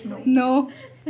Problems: background conversations at intervals